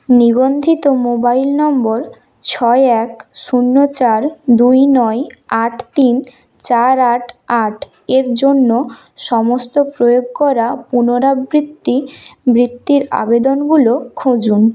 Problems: constant background noise